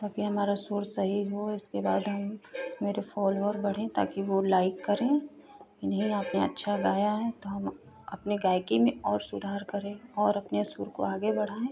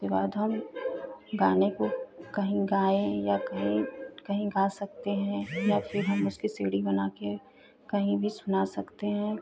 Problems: constant background noise